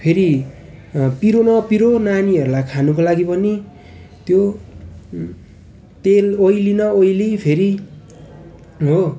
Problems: continuous background conversations